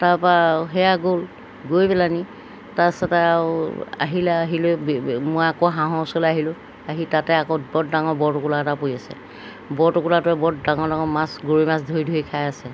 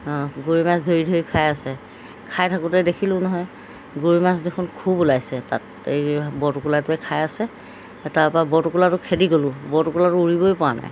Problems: background sounds at intervals